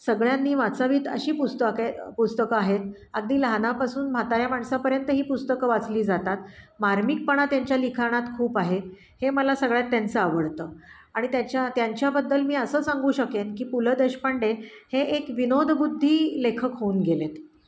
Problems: none marked